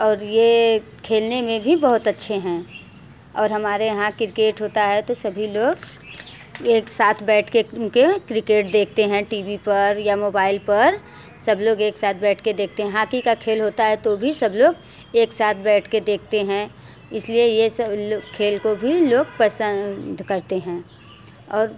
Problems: background sounds at intervals